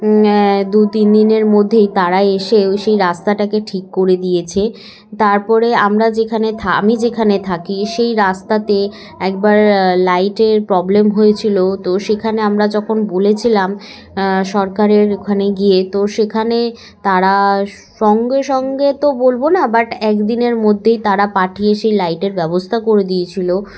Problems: background sounds at intervals, background conversations at intervals